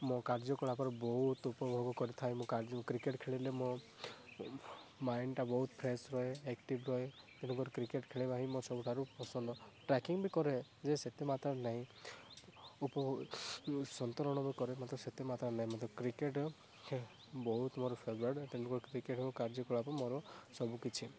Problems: background sounds at intervals, low volume